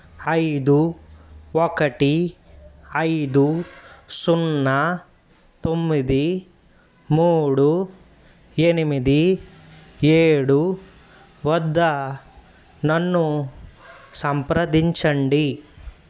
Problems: background sounds at intervals